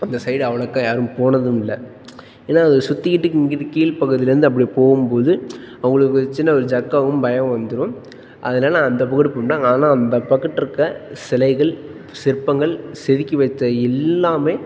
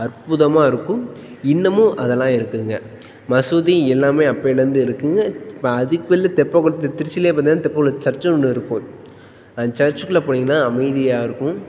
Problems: background sounds at intervals